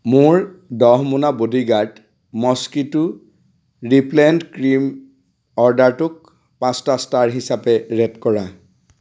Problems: constant background noise